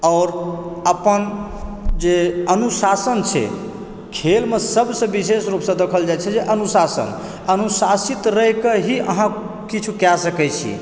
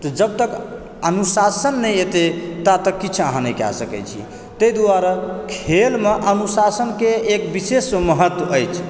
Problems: background conversations at intervals